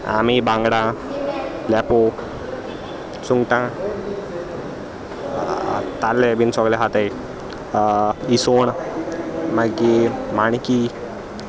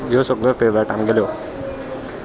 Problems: constant background noise, continuous background conversations